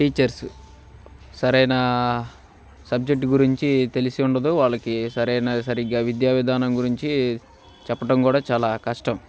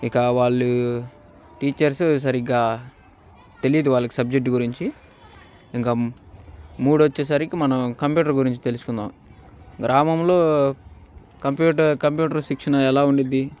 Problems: background sounds at intervals